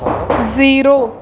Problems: background sounds at intervals